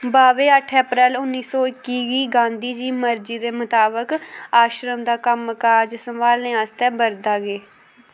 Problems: background sounds at intervals